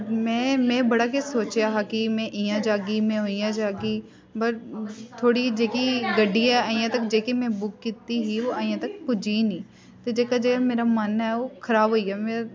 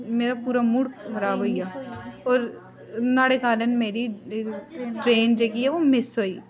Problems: constant background noise